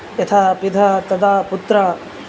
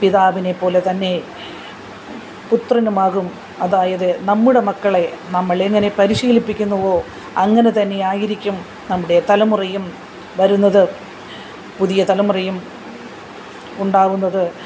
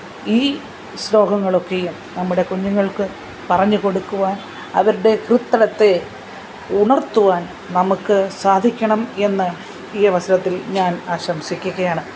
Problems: background sounds at intervals